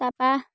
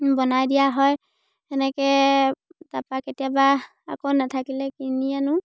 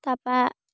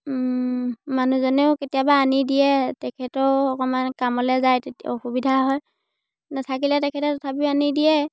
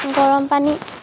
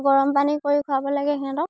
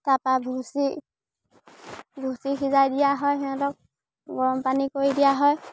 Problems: none marked